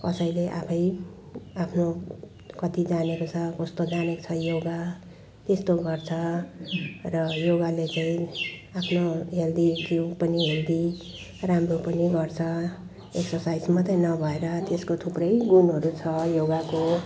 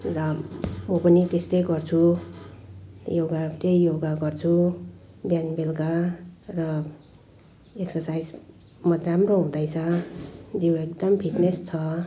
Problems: background sounds at intervals